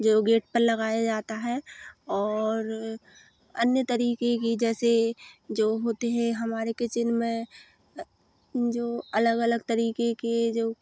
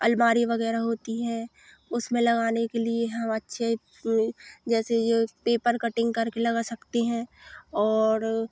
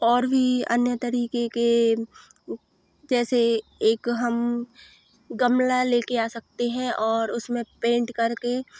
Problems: none marked